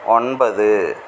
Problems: constant background noise